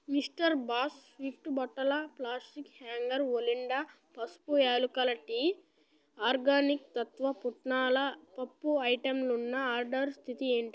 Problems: none marked